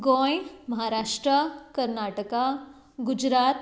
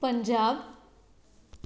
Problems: background sounds at intervals